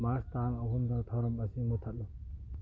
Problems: low volume